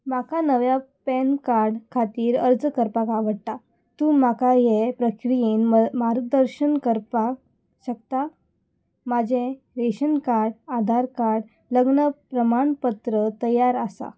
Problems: none marked